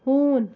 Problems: constant background noise